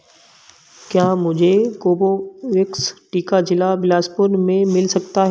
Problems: background sounds at intervals